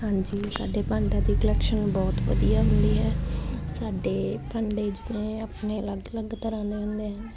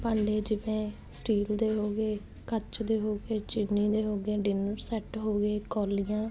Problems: none marked